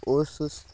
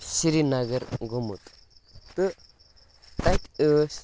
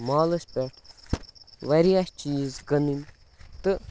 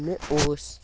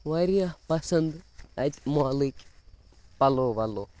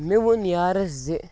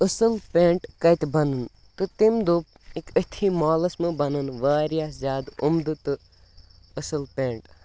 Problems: background sounds at intervals